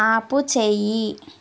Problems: none marked